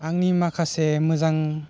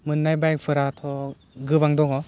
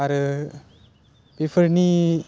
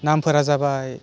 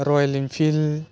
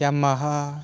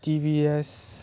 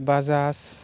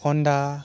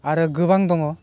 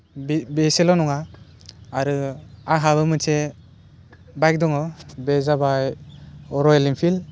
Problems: constant background noise